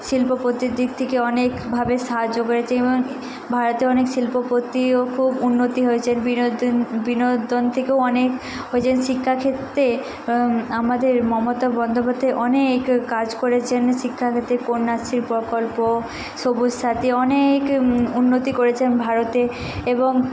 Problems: none marked